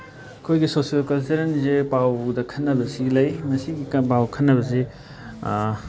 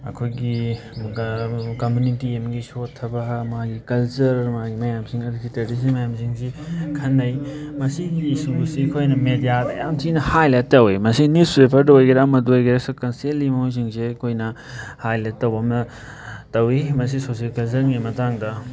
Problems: background sounds at intervals, background conversations at intervals